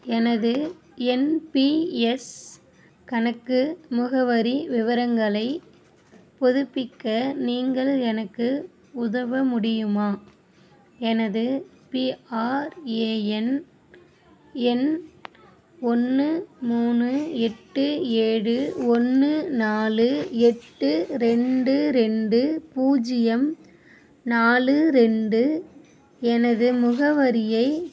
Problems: none marked